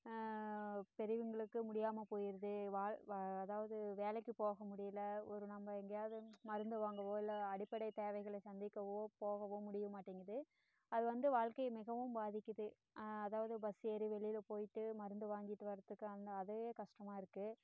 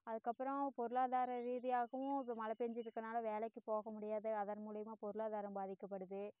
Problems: low volume